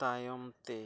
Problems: none marked